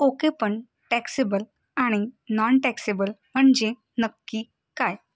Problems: constant background noise